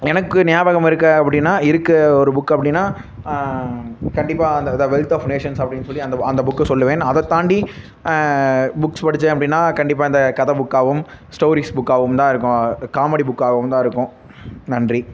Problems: constant background noise